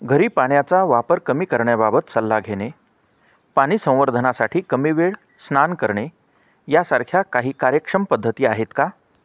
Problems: none marked